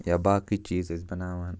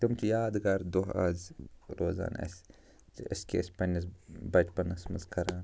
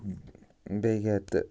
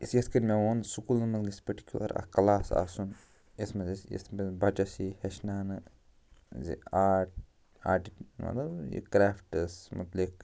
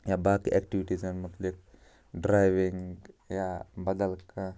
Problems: constant background noise